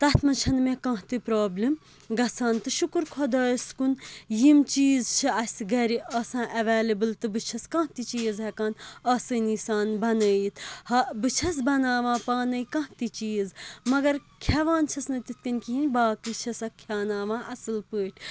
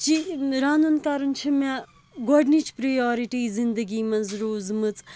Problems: constant background noise